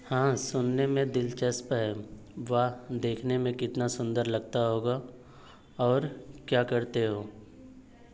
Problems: constant background noise